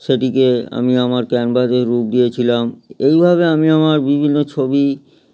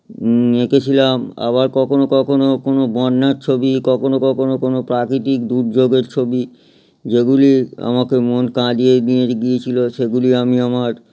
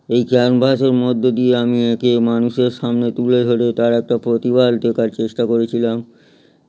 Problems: none marked